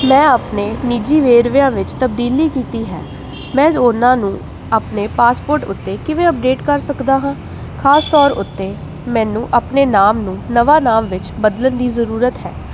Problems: constant background noise